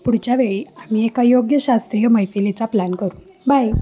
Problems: constant background noise, background conversations at intervals